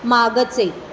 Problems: constant background noise